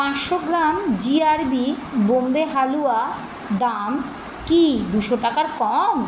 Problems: constant background noise